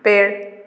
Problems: constant background noise